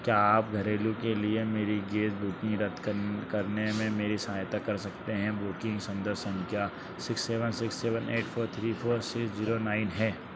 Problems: constant background noise